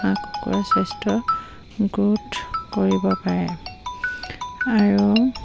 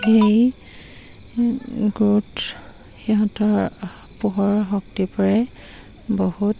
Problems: constant background noise